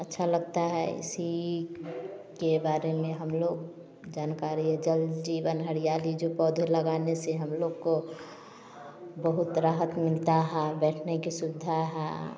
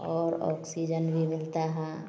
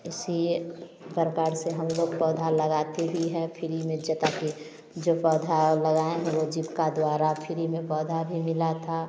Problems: background sounds at intervals